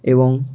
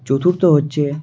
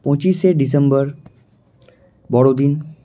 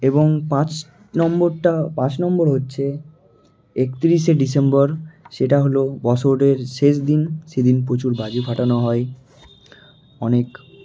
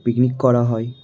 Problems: constant background noise